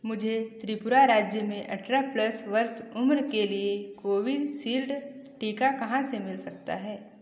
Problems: none marked